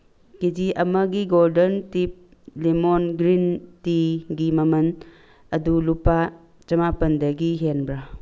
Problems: none marked